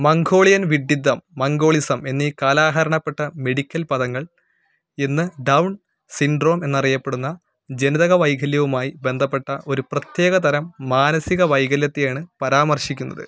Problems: none marked